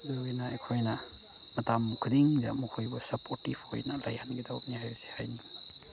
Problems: background sounds at intervals